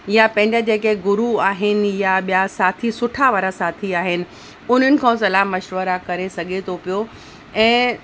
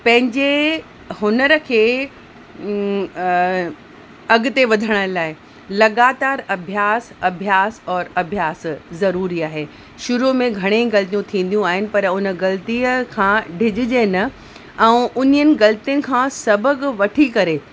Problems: constant background noise